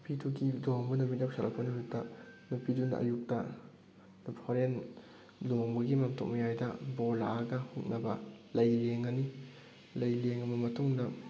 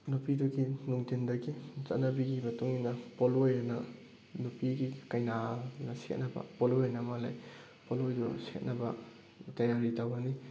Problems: background sounds at intervals